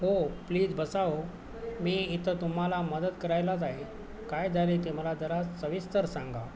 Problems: constant background noise, background conversations at intervals